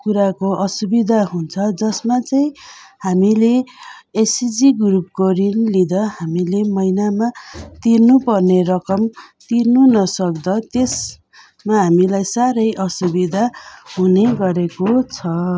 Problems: constant background noise